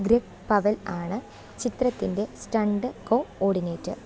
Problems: low volume